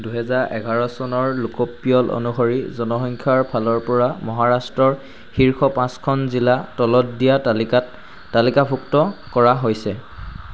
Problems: background sounds at intervals